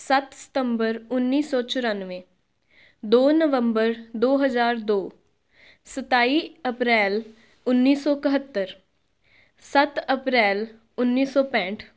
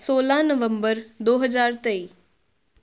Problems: none marked